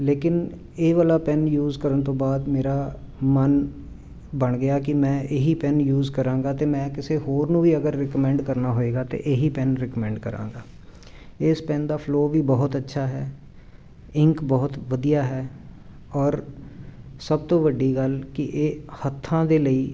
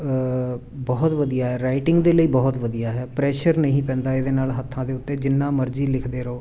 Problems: constant background noise